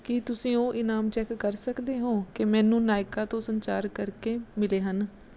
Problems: none marked